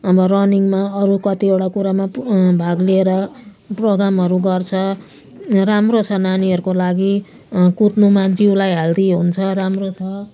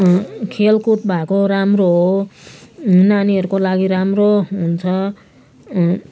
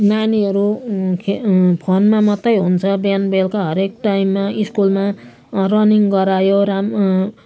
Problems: constant background noise